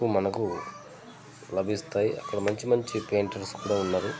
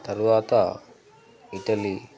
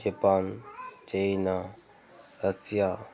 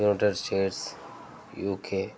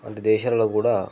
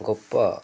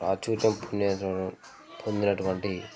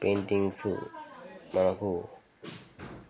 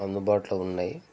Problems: constant background noise, continuous background conversations